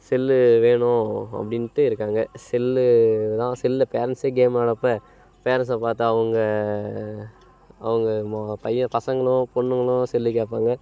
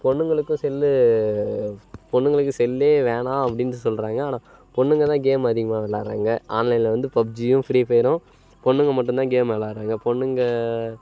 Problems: none marked